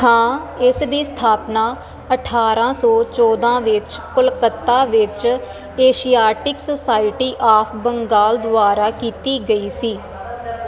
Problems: constant background noise